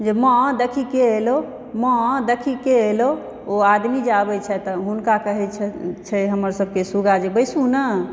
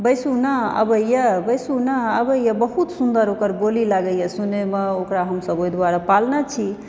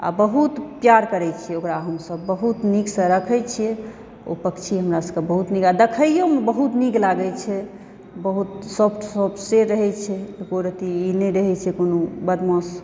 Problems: background sounds at intervals